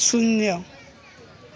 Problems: constant background noise